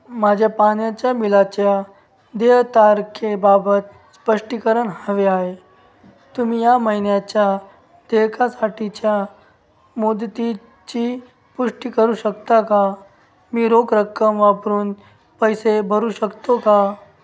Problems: background sounds at intervals